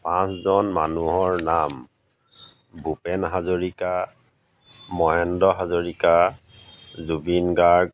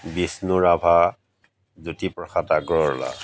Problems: background sounds at intervals